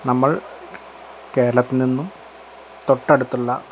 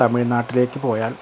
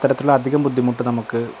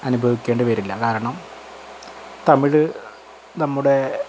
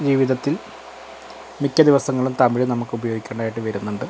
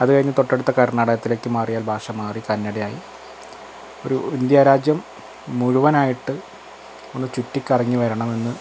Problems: constant background noise